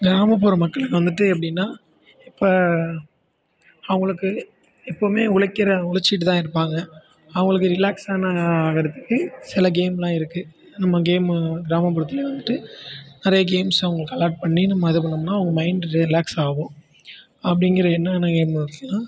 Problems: background sounds at intervals